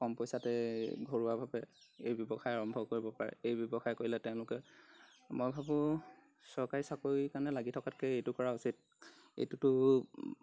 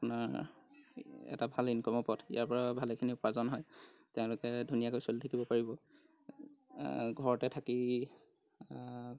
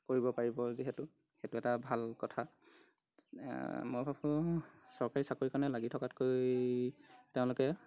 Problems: background sounds at intervals